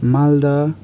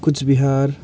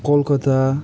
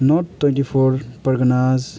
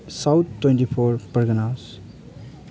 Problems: background sounds at intervals